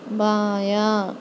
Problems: constant background noise